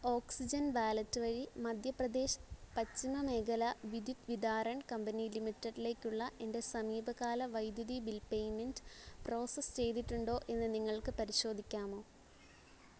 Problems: background sounds at intervals